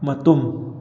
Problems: none marked